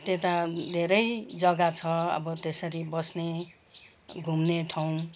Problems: background sounds at intervals